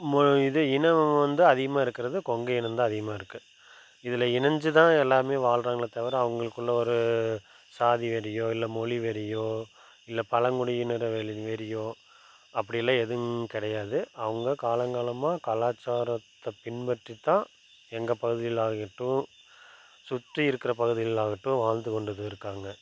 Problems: background sounds at intervals